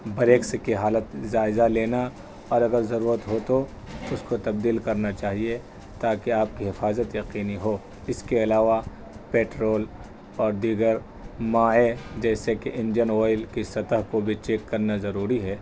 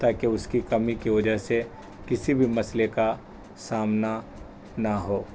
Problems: constant background noise